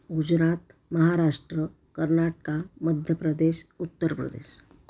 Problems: none marked